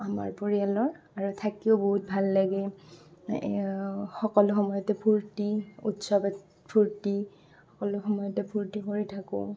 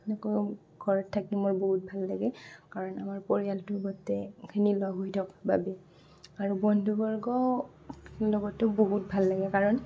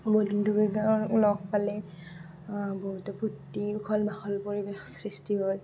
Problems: constant background noise